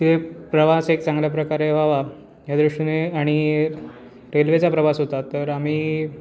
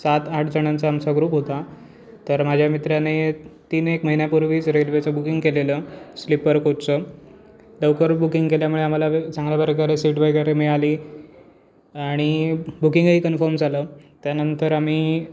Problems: constant background noise, continuous background conversations